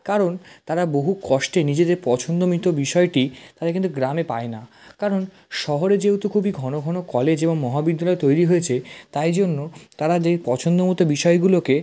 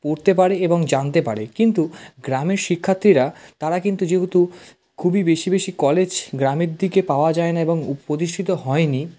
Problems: constant background noise